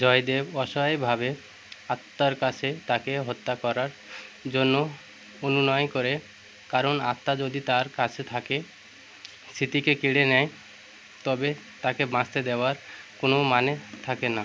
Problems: constant background noise